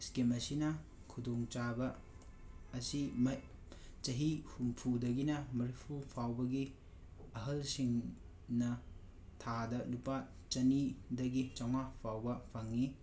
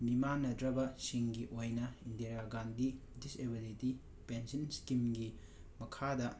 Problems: background sounds at intervals, background conversations at intervals